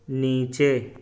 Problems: none marked